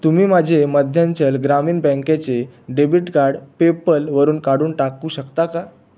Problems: background sounds at intervals